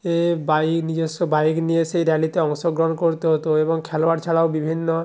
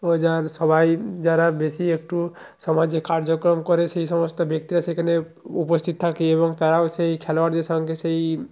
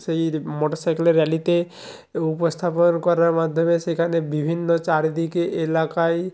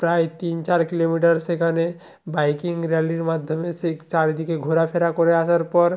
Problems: none marked